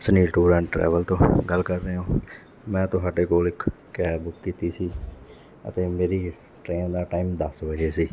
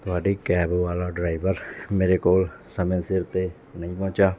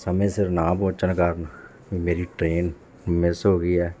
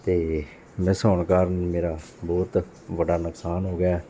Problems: background sounds at intervals, background conversations at intervals